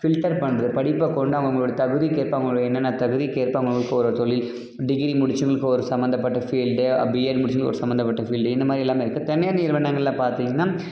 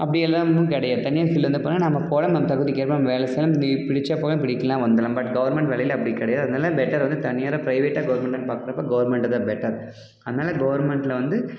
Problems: background conversations at intervals